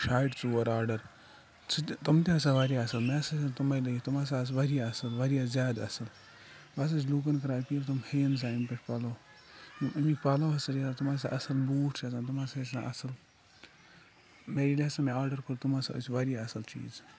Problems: background sounds at intervals, low volume